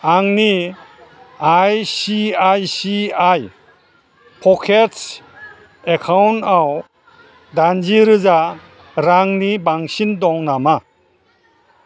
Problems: constant background noise